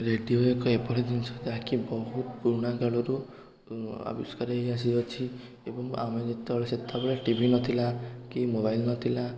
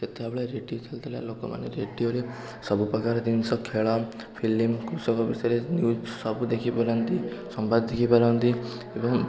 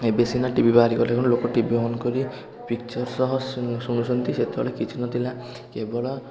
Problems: constant background noise, continuous background conversations